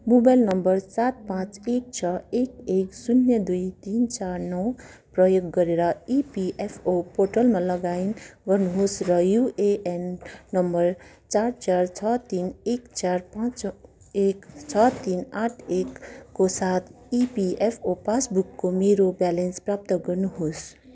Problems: none marked